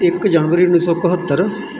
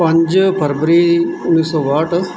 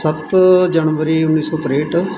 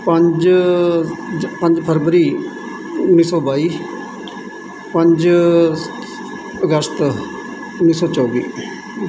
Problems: constant background noise